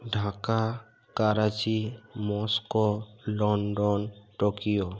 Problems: constant background noise